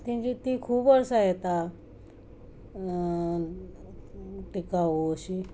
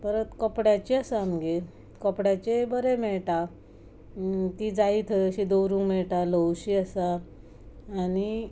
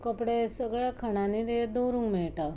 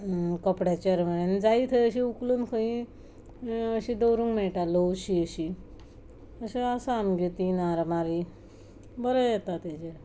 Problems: constant background noise